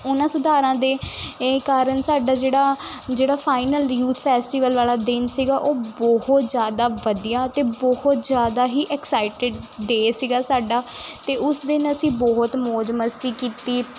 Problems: constant background noise